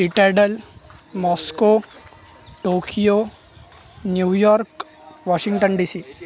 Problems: constant background noise, continuous background conversations